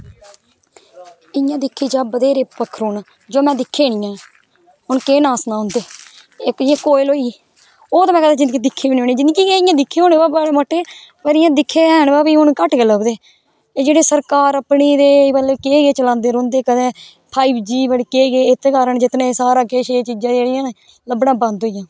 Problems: background sounds at intervals